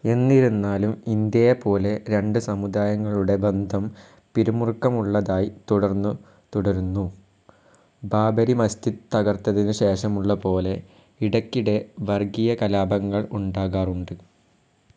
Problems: low volume